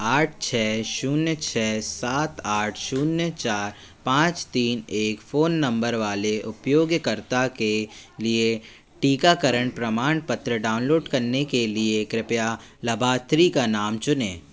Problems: background sounds at intervals